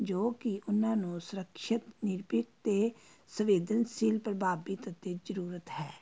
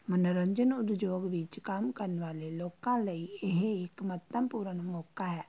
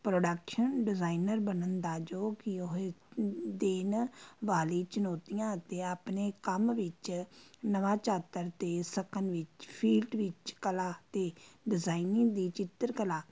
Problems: constant background noise